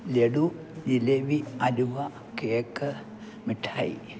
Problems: none marked